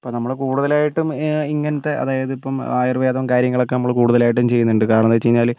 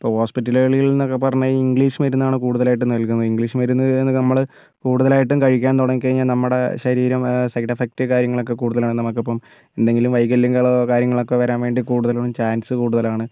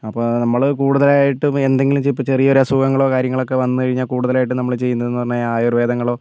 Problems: none marked